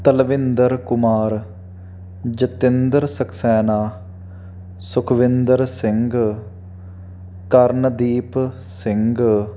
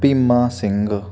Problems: none marked